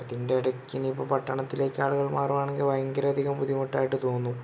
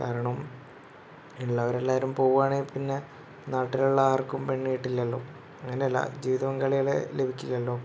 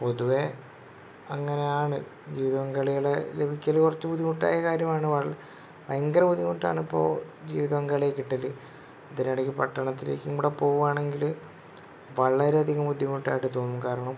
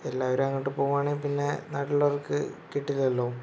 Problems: constant background noise